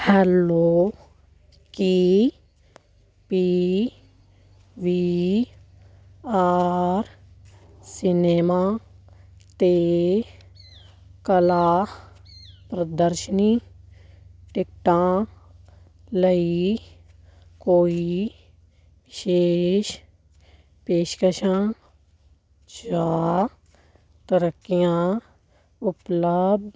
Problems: background sounds at intervals